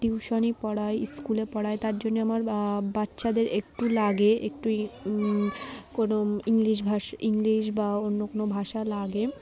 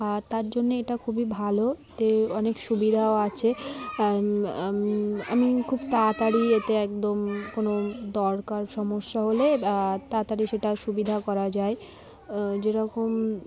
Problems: constant background noise